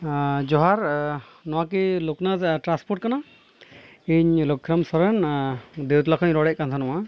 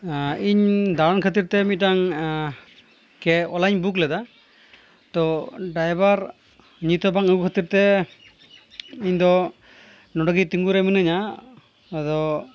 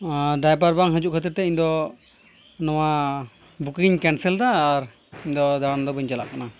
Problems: none marked